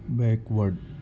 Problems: constant background noise, low volume